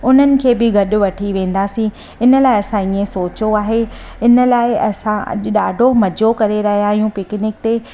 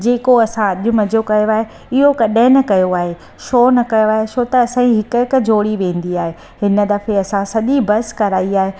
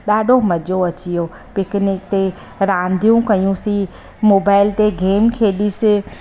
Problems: constant background noise